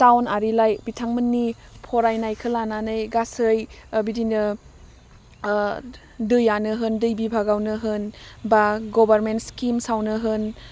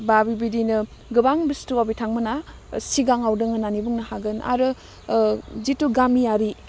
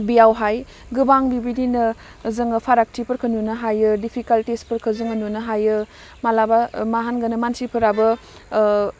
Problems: none marked